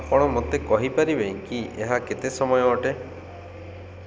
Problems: none marked